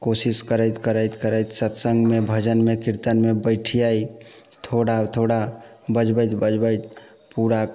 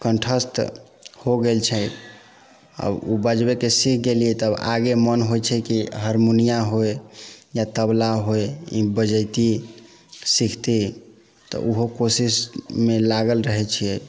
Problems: background sounds at intervals